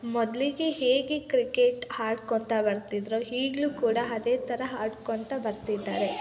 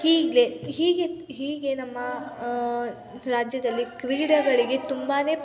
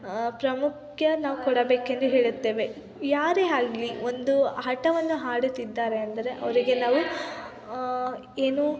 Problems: constant background noise, continuous background conversations